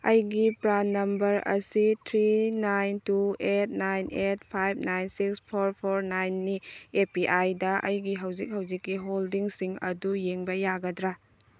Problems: background sounds at intervals